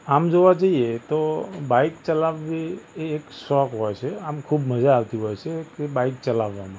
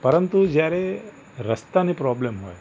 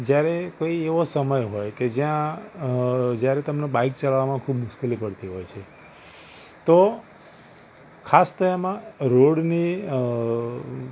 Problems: constant background noise